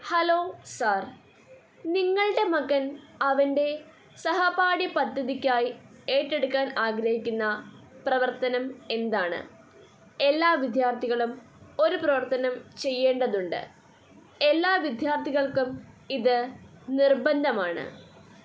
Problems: none marked